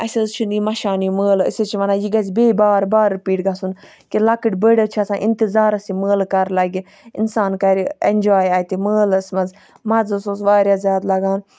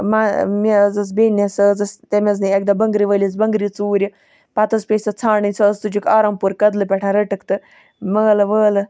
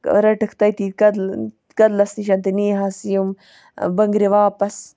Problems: none marked